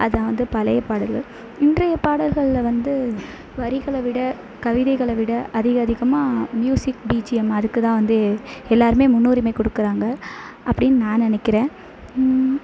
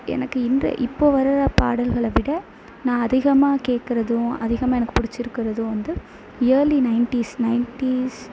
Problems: constant background noise